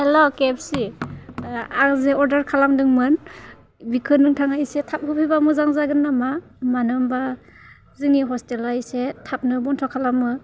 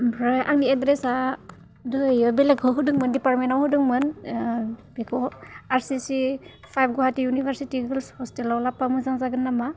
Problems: low volume